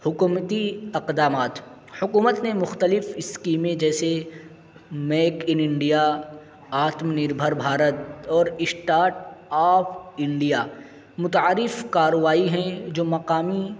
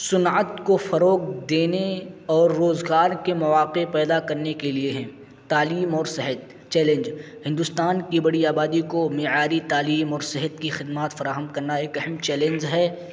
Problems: constant background noise